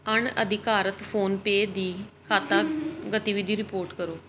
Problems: background sounds at intervals